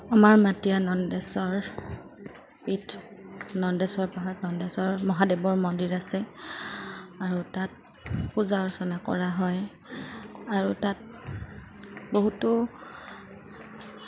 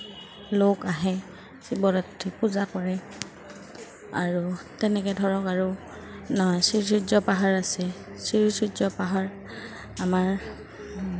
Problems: constant background noise, background conversations at intervals